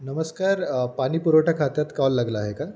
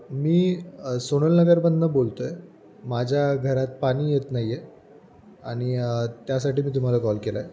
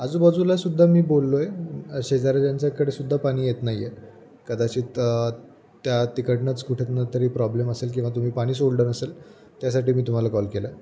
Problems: background sounds at intervals